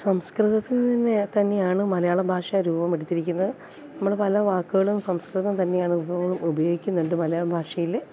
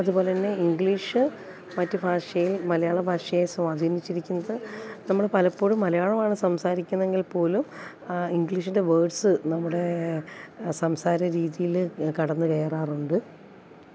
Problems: constant background noise